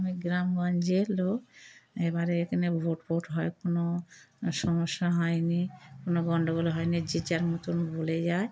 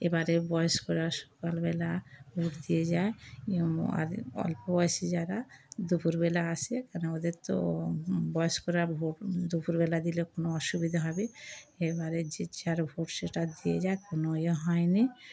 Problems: constant background noise